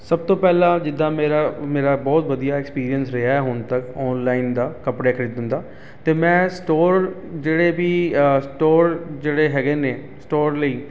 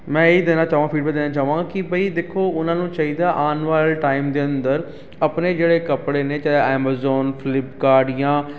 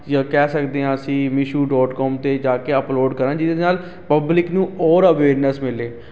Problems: constant background noise